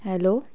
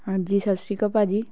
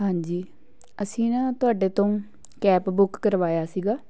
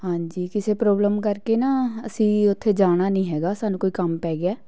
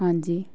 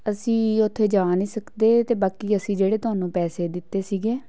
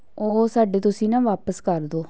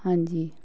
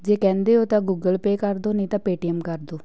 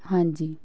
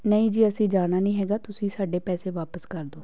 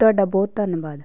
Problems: background conversations at intervals